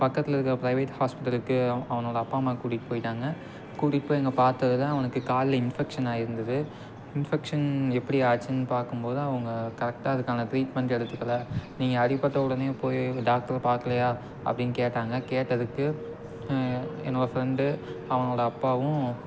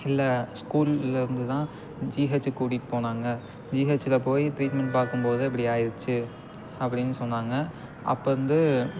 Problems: constant background noise